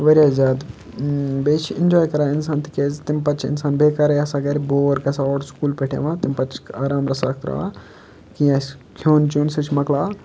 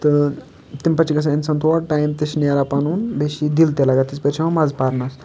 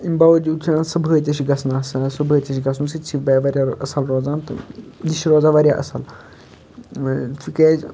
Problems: constant background noise